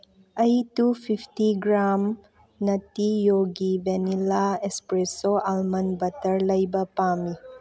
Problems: background conversations at intervals